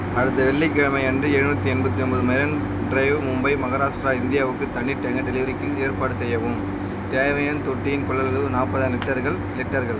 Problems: constant background noise